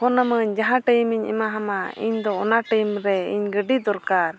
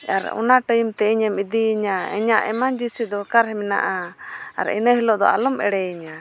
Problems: constant background noise